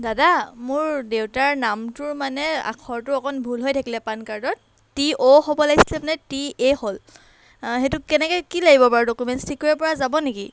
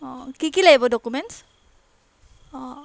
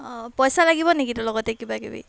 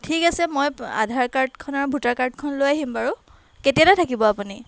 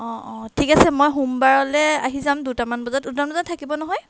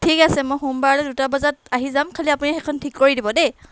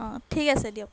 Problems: background sounds at intervals